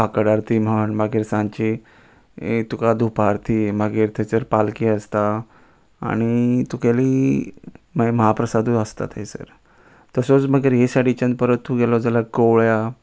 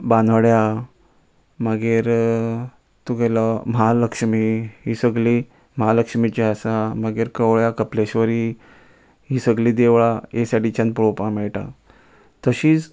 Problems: constant background noise